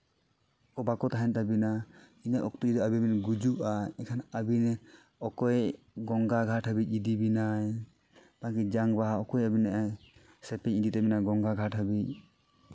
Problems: none marked